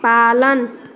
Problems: constant background noise